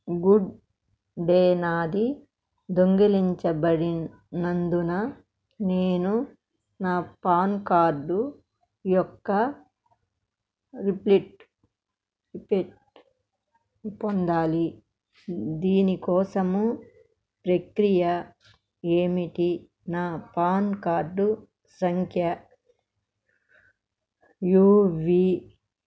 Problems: none marked